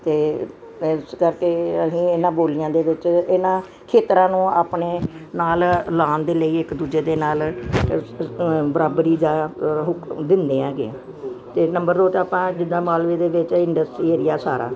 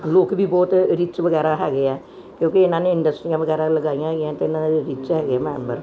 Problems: background sounds at intervals